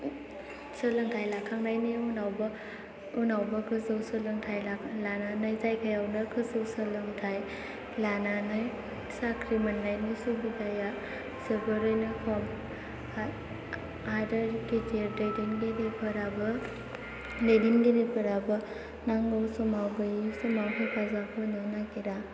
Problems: constant background noise